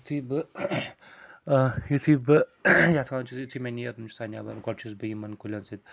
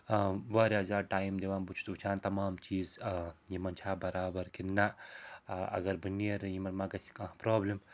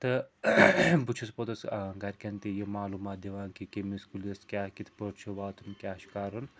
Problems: constant background noise